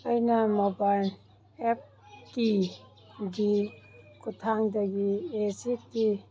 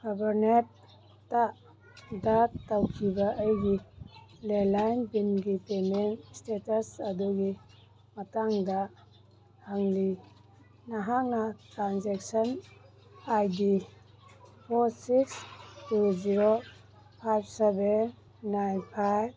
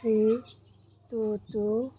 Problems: background sounds at intervals